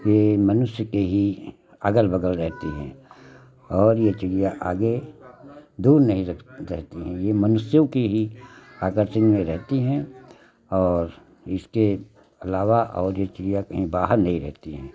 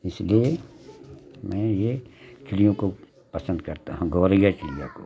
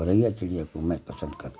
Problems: constant background noise